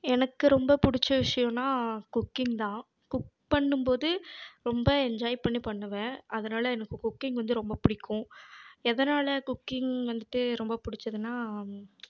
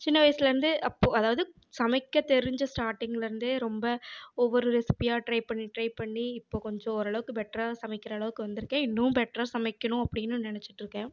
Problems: background sounds at intervals